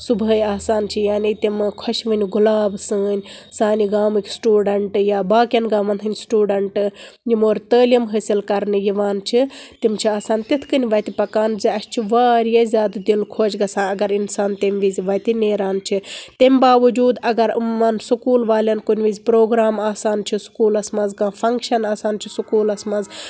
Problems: constant background noise